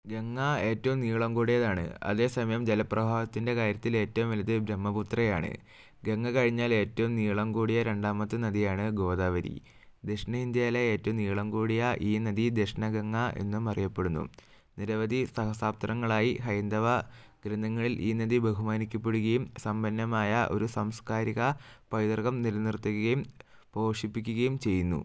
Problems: low volume